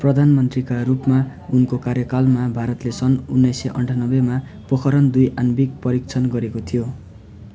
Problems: none marked